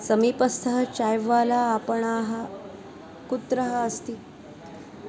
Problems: constant background noise